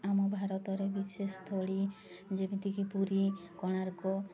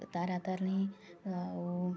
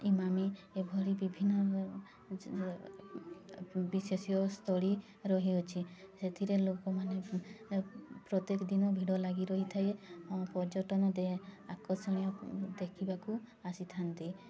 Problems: constant background noise